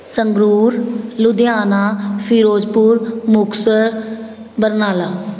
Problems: constant background noise